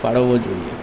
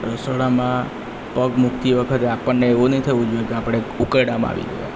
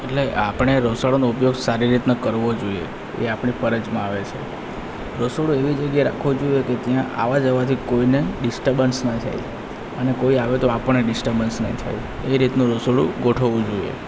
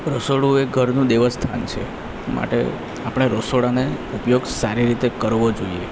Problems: constant background noise